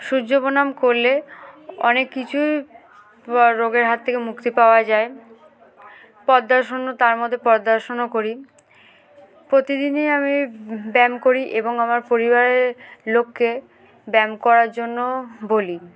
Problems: background sounds at intervals